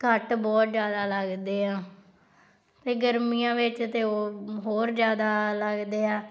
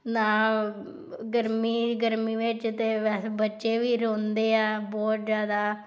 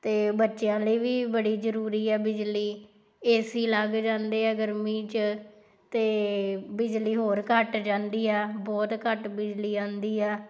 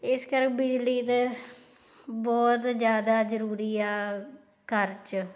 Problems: background sounds at intervals